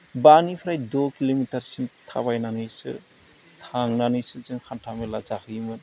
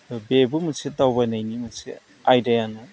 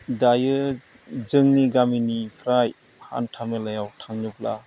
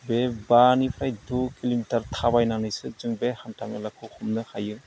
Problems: low volume